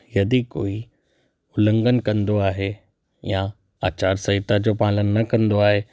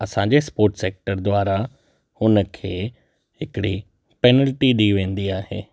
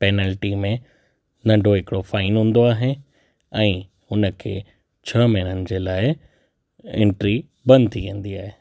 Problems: none marked